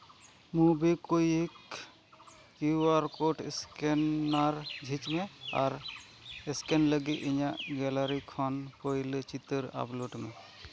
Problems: none marked